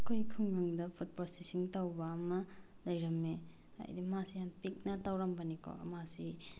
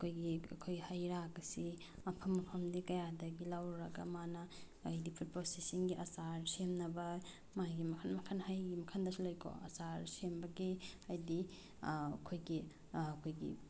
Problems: background sounds at intervals